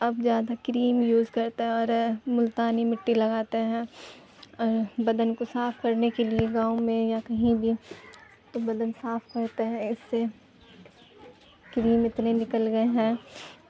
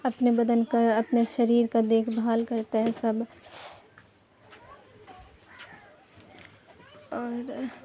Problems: constant background noise, background conversations at intervals